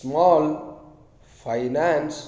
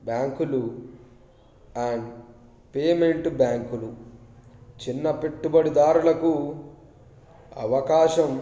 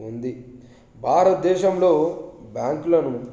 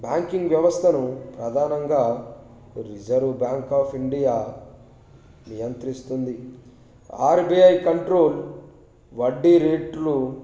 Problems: background sounds at intervals